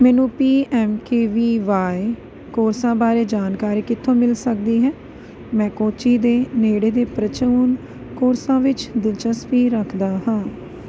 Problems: none marked